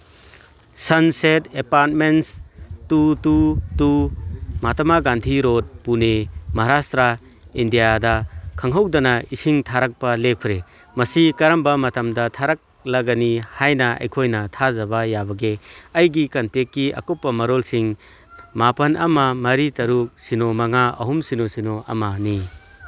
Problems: background sounds at intervals